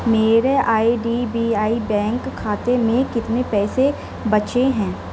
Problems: none marked